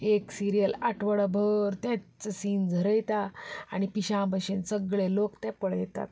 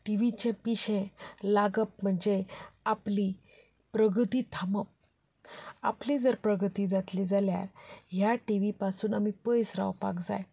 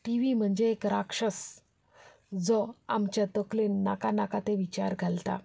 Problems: continuous background conversations